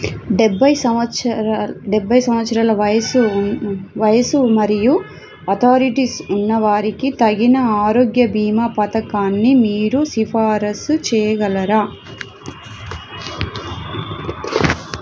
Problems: constant background noise